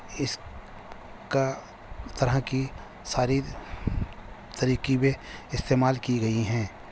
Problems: constant background noise